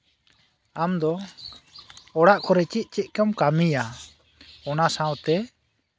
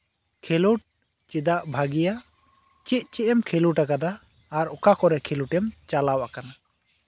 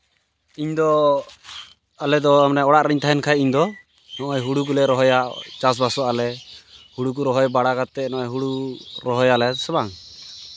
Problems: none marked